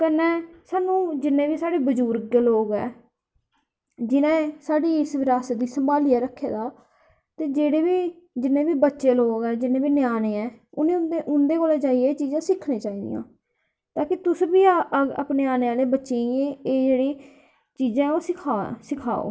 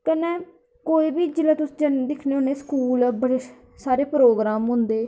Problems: echo